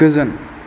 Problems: none marked